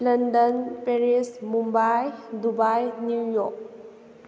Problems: none marked